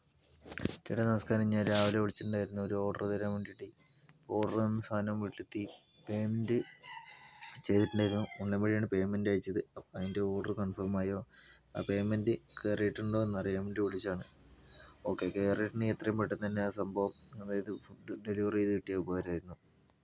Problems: low volume